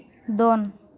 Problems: none marked